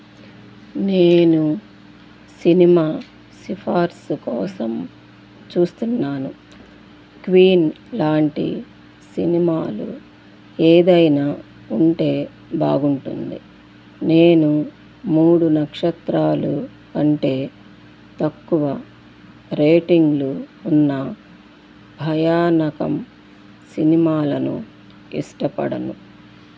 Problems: constant background noise